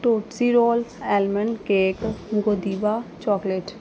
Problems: none marked